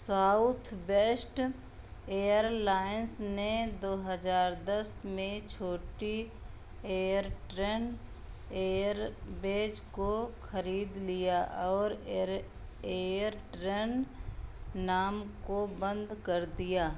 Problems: background sounds at intervals